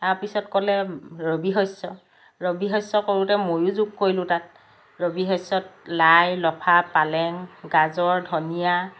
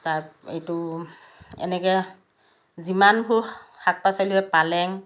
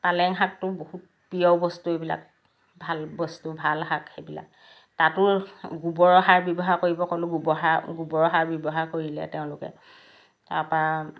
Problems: background sounds at intervals